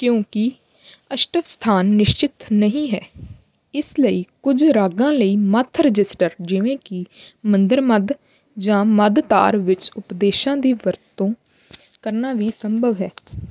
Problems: none marked